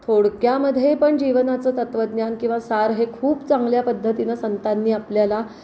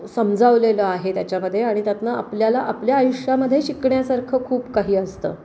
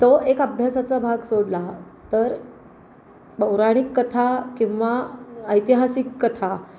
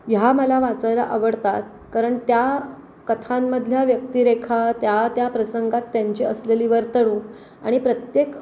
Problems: none marked